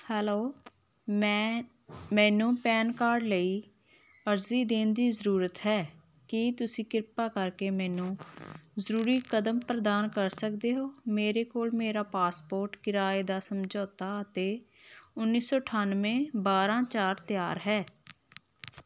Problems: none marked